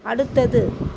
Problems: constant background noise